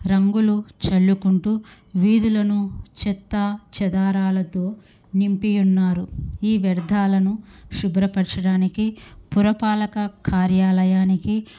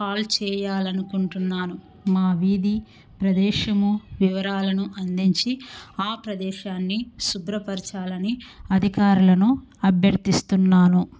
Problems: none marked